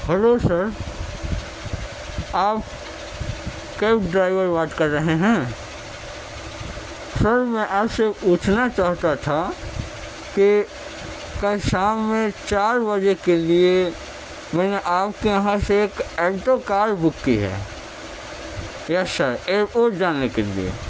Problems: constant background noise